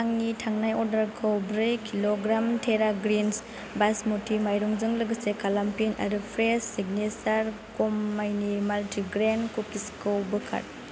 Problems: constant background noise